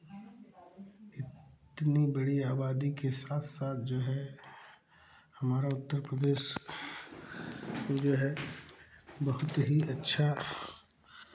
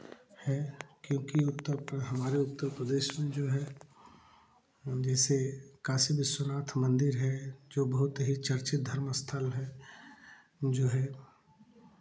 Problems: background sounds at intervals